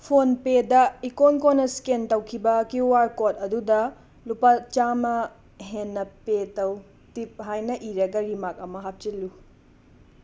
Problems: background sounds at intervals